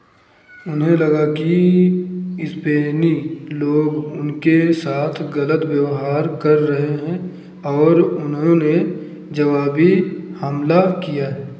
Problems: none marked